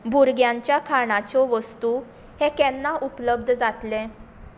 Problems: constant background noise